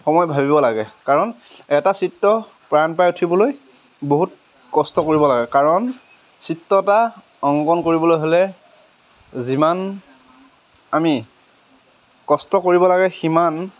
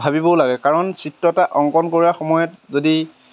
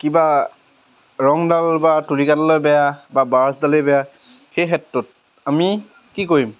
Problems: none marked